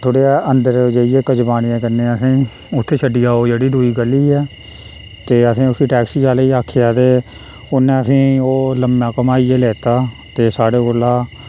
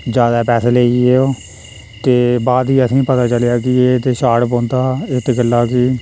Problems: constant background noise